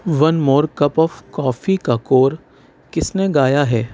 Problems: constant background noise